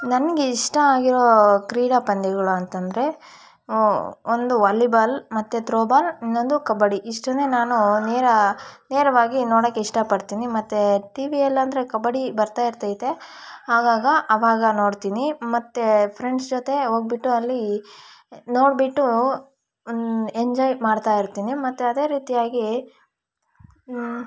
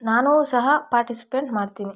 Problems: background sounds at intervals